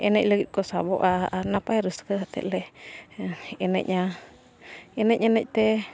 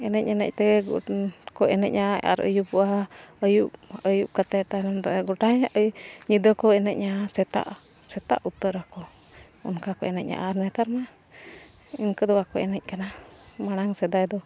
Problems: continuous background conversations